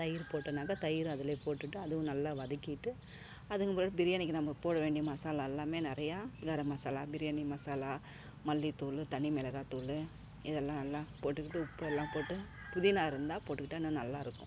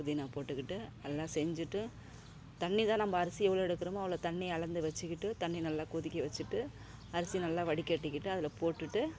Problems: constant background noise